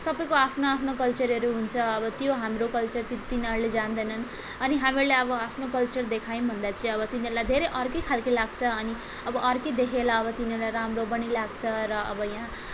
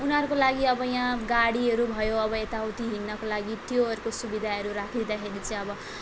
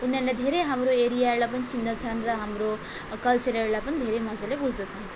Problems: constant background noise